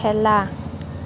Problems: constant background noise